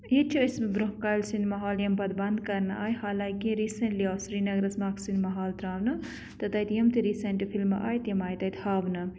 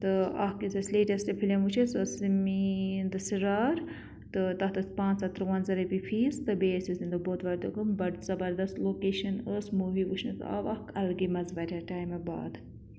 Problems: none marked